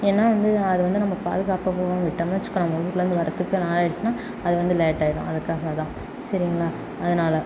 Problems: none marked